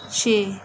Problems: background sounds at intervals